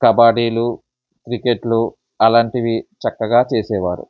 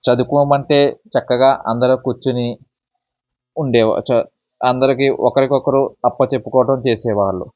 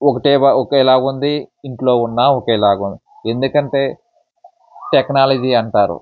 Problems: background sounds at intervals, background conversations at intervals